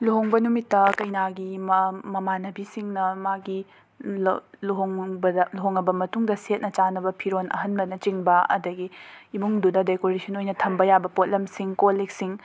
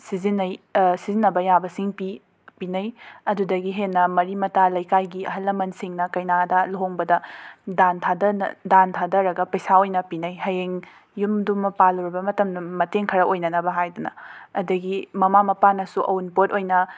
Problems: background sounds at intervals